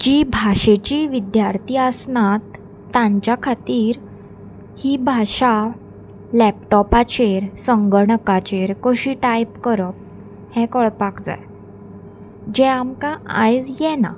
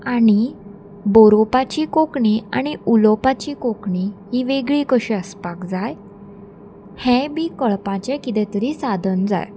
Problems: constant background noise